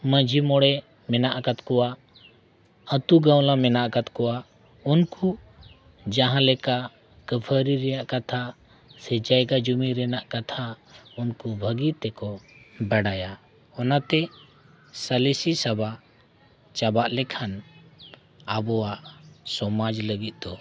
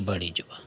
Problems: none marked